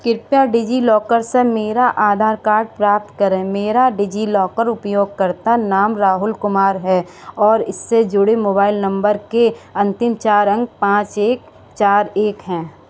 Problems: background sounds at intervals